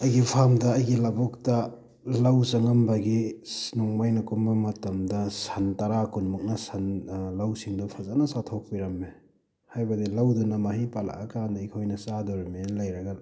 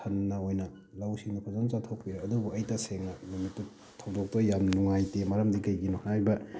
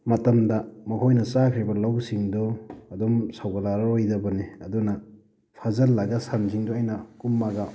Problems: background sounds at intervals